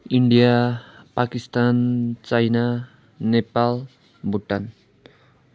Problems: background sounds at intervals